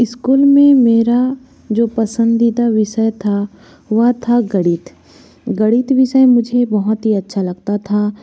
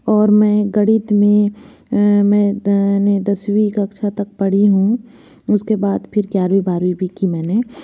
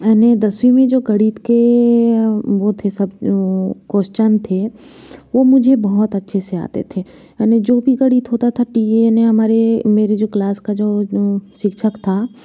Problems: constant background noise